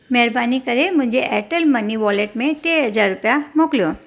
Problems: none marked